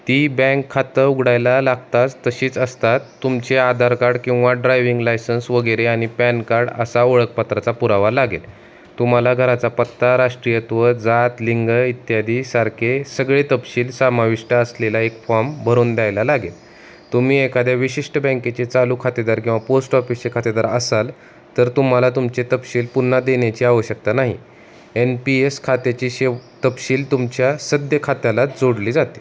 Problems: constant background noise